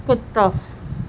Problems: none marked